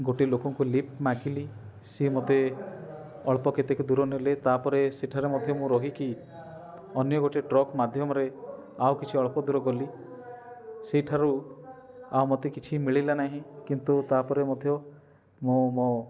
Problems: constant background noise, continuous background conversations